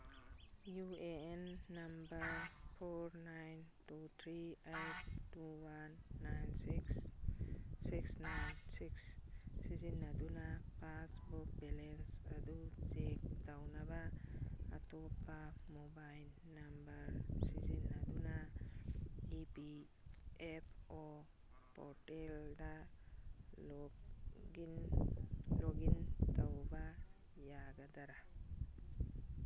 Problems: background sounds at intervals